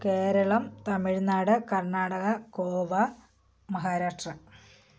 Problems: none marked